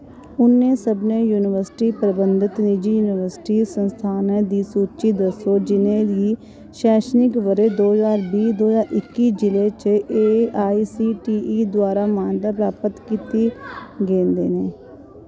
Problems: none marked